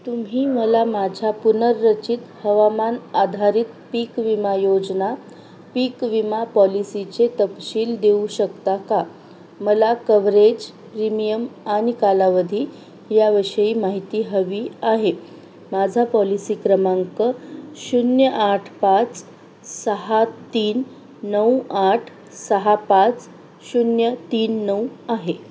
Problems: constant background noise